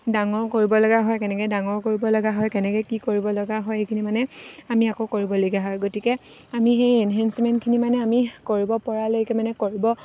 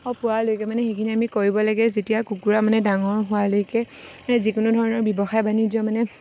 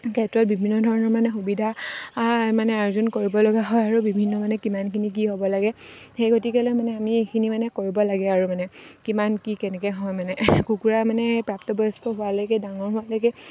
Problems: none marked